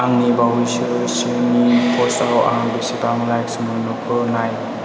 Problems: constant background noise